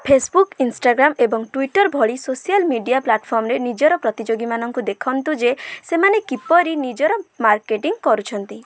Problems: background sounds at intervals